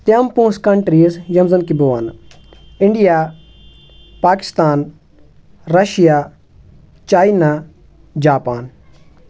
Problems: none marked